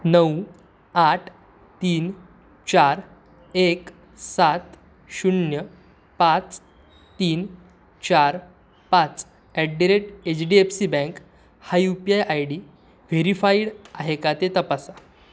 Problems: none marked